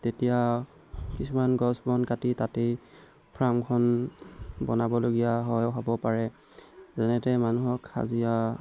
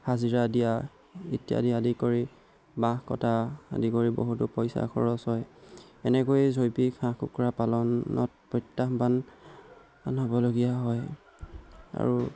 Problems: background sounds at intervals